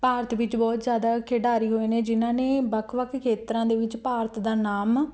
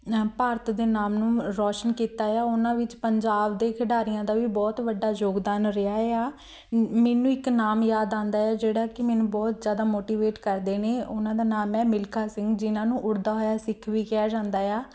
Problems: background sounds at intervals